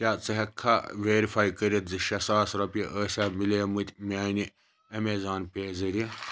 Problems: none marked